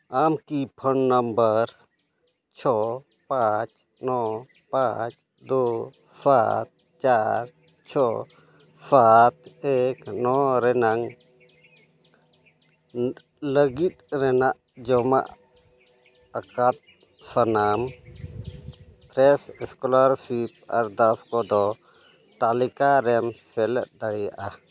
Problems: none marked